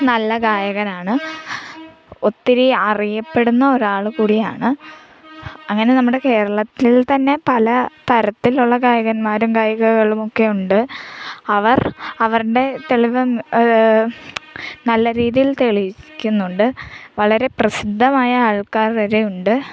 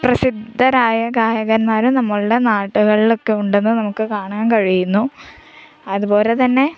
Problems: background sounds at intervals